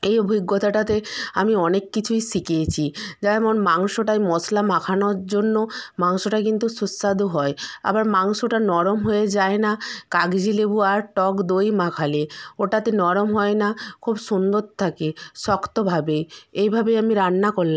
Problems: background conversations at intervals